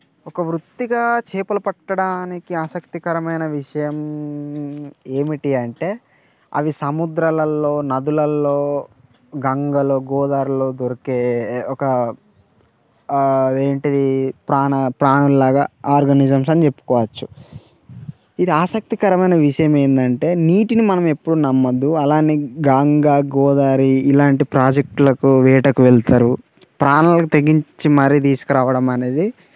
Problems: constant background noise